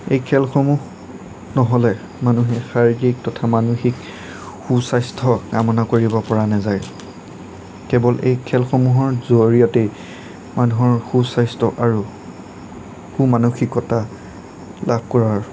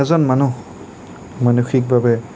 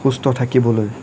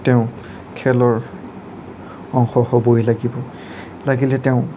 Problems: none marked